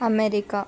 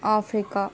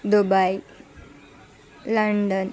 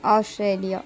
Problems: continuous background conversations